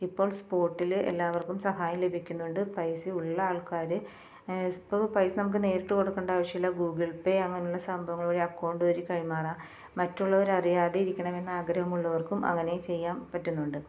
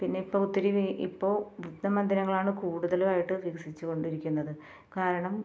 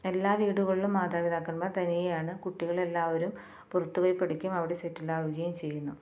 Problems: low volume